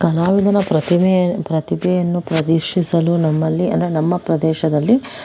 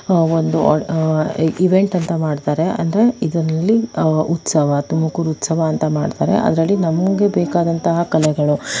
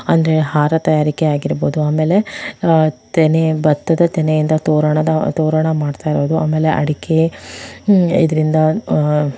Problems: background sounds at intervals